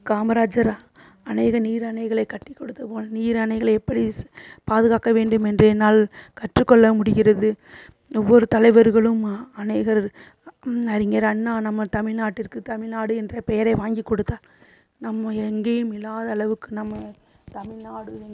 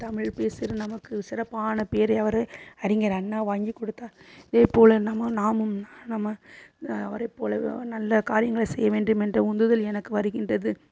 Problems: constant background noise